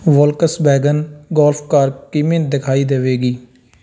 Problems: none marked